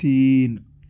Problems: none marked